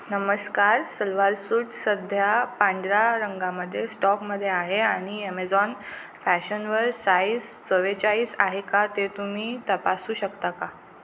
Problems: background sounds at intervals